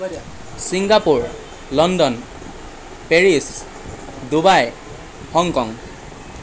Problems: constant background noise